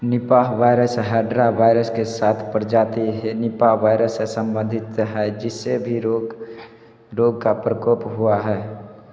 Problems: constant background noise